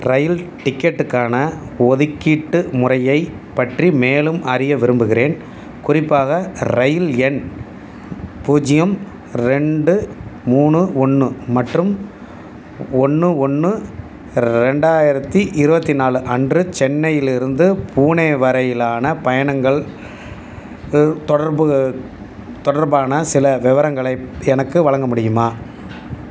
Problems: constant background noise